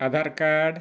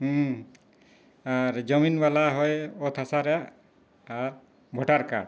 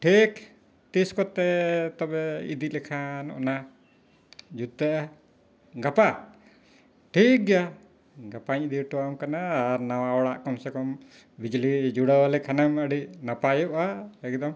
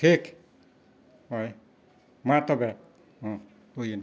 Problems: background sounds at intervals